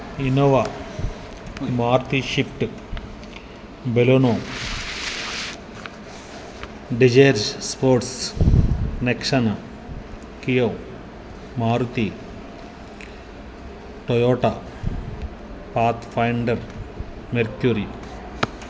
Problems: constant background noise